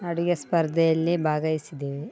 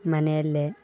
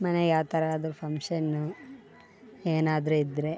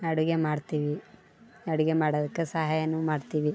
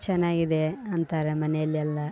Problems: none marked